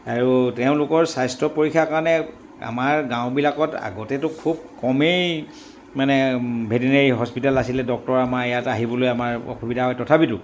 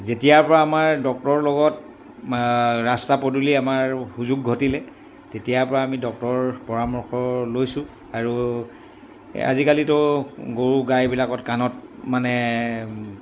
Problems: background sounds at intervals